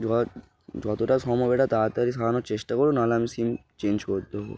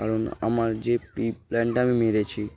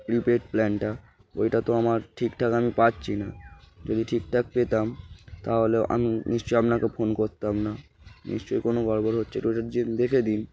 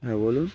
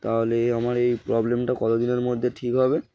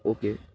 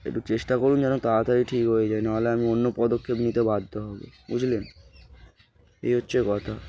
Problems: background sounds at intervals